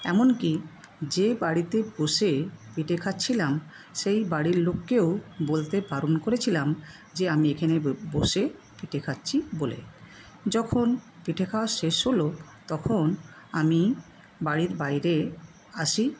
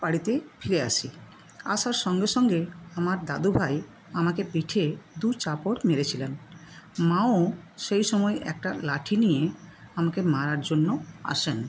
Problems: constant background noise